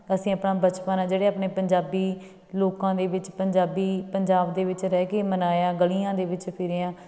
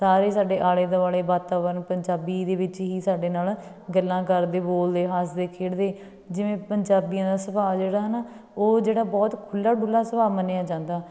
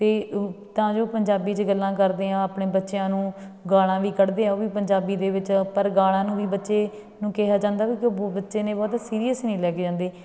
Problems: background sounds at intervals, background conversations at intervals